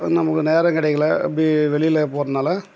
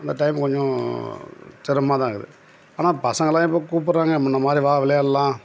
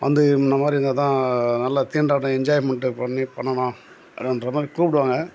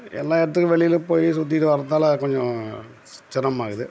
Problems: background sounds at intervals